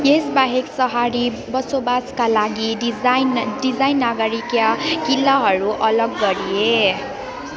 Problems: continuous background conversations